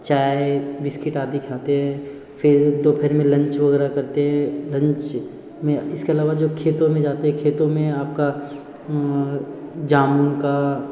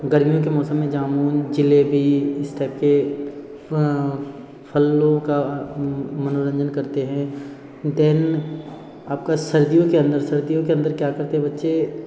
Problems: none marked